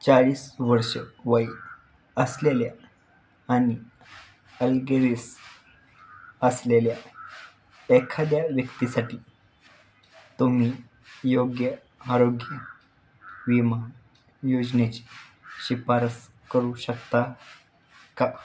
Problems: background sounds at intervals